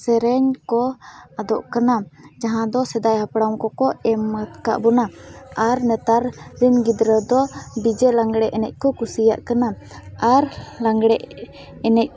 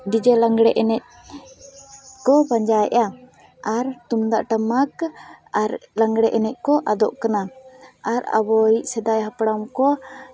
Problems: background sounds at intervals